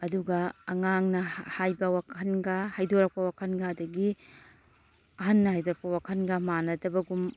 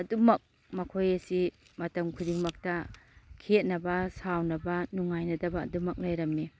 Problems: none marked